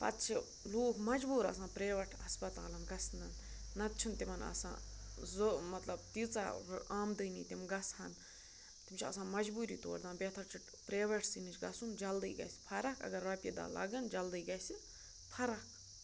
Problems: constant background noise